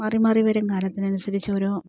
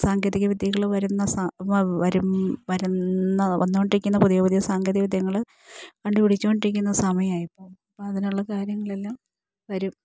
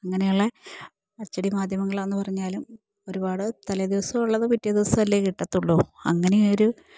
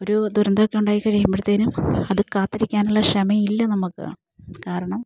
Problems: low volume